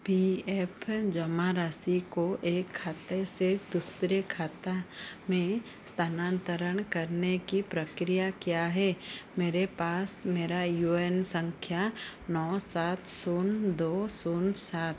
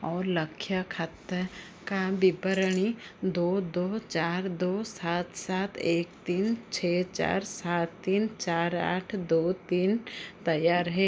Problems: constant background noise